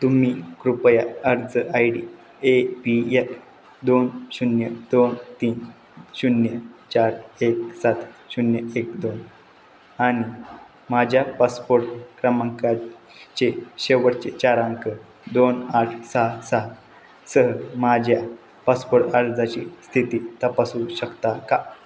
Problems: none marked